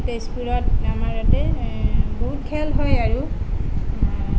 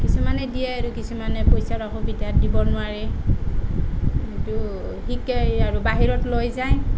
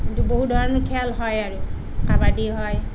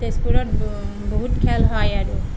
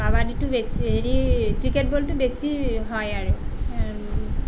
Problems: none marked